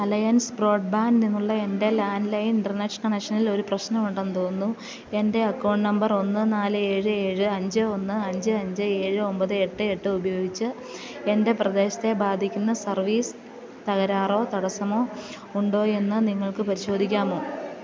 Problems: constant background noise, background conversations at intervals